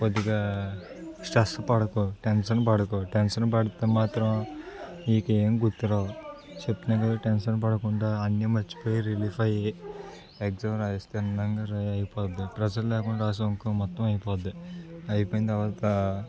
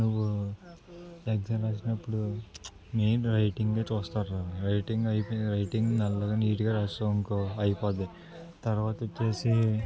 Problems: continuous background conversations